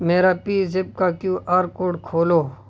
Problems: constant background noise